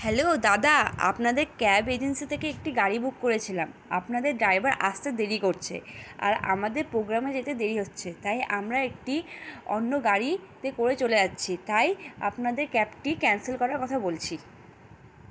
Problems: constant background noise